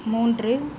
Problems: constant background noise